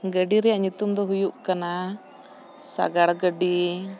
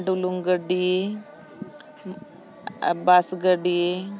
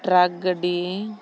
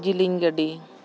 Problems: constant background noise